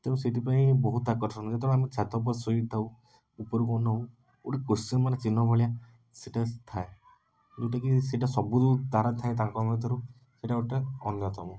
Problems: none marked